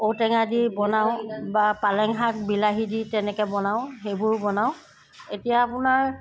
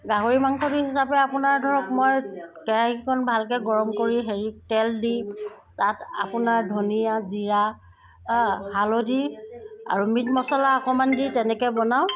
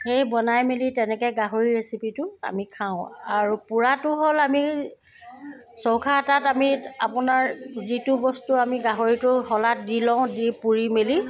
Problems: constant background noise